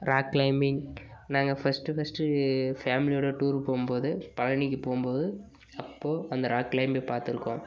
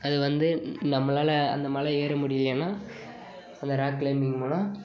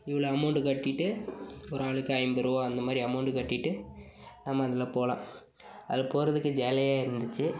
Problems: background sounds at intervals, background conversations at intervals